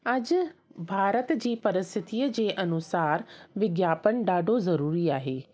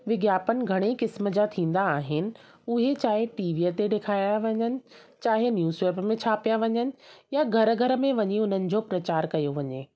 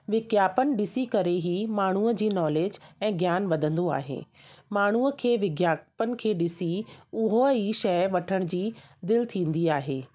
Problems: constant background noise